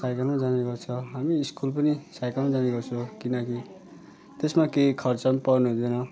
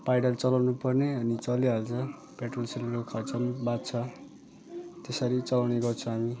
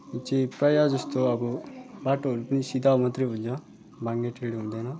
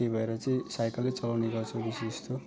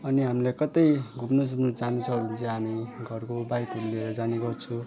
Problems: none marked